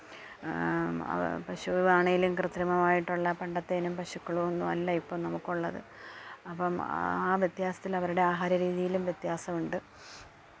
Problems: none marked